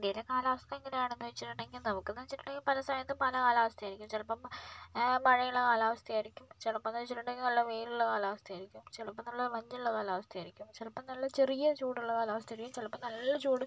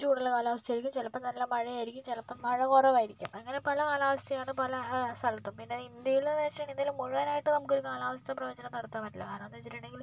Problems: low volume